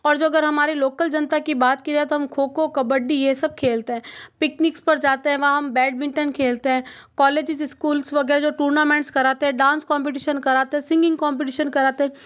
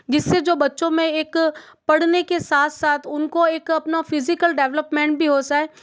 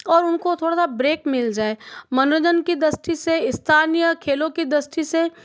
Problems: background sounds at intervals